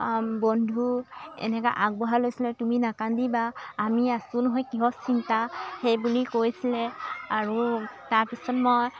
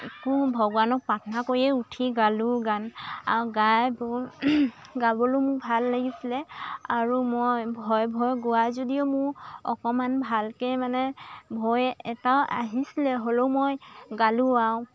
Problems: constant background noise, continuous background conversations